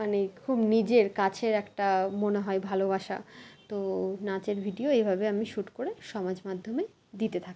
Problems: constant background noise, continuous background conversations